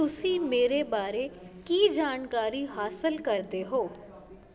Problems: constant background noise